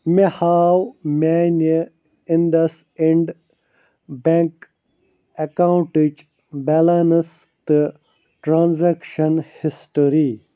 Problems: none marked